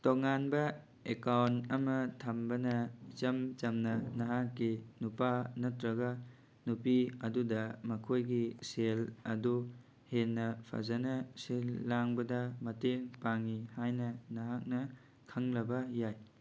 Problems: none marked